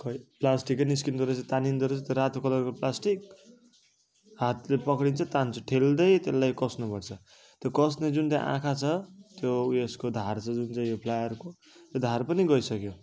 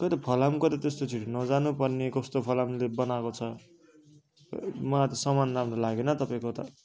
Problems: none marked